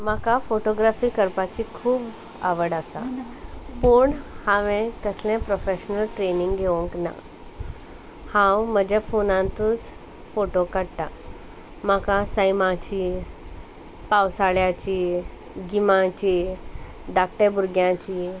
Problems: constant background noise